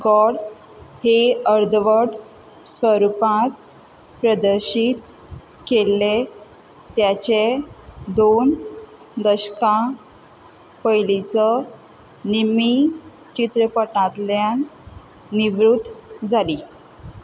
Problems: none marked